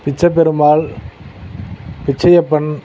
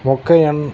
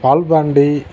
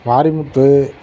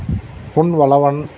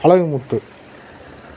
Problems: constant background noise